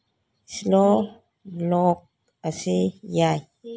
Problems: background conversations at intervals